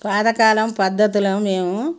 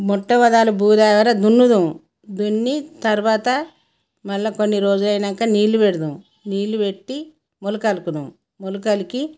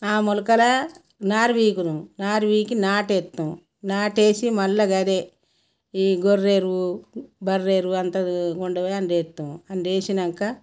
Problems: none marked